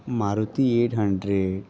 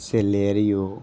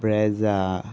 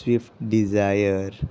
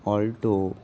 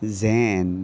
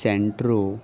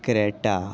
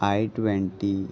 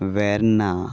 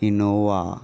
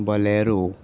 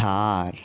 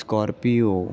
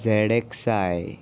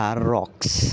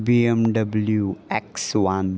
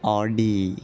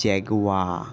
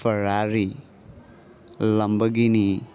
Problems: constant background noise, continuous background conversations